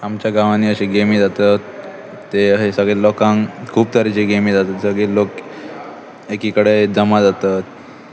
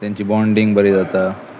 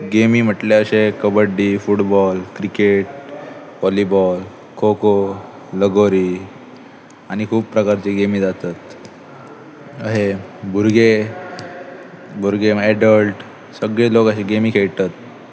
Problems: constant background noise, continuous background conversations